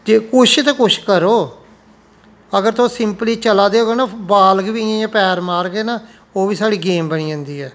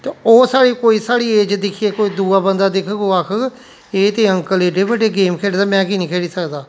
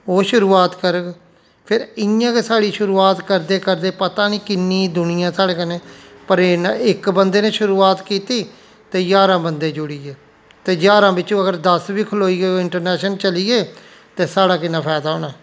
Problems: constant background noise